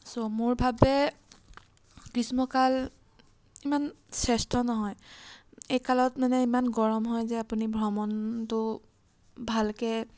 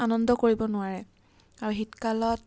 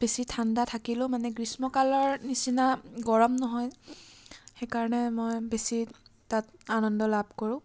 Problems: background sounds at intervals